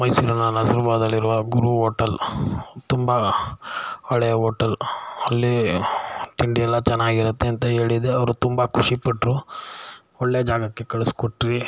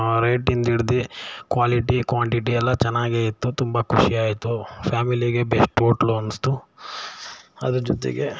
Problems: none marked